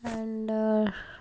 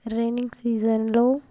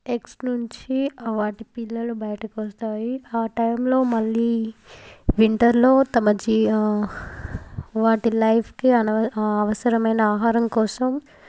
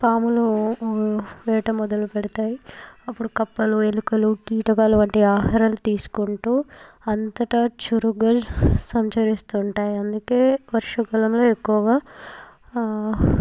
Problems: background sounds at intervals, background conversations at intervals